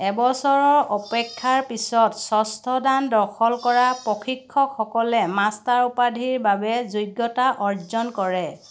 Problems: none marked